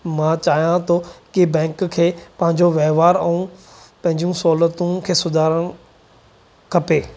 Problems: constant background noise